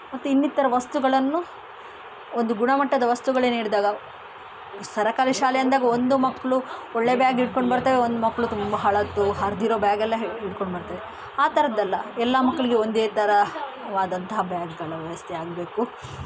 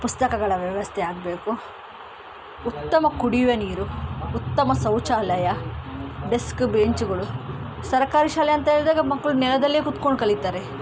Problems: background sounds at intervals